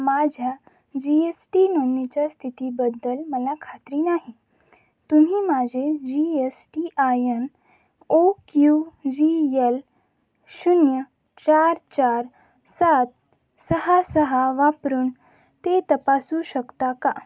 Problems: none marked